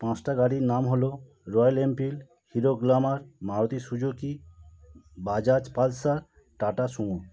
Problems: none marked